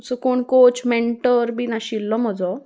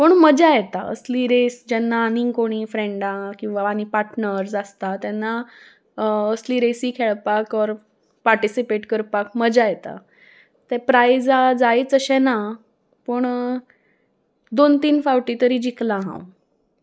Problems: background sounds at intervals